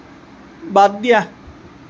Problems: constant background noise